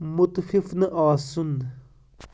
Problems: background sounds at intervals